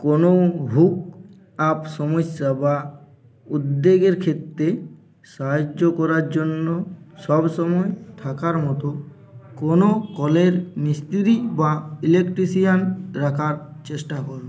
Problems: constant background noise, continuous background conversations